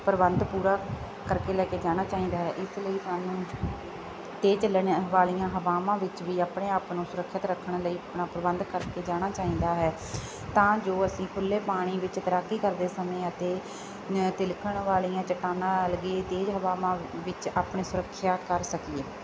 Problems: none marked